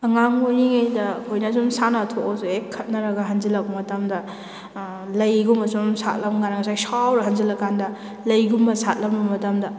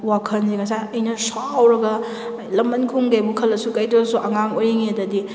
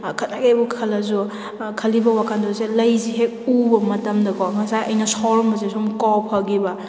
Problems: background sounds at intervals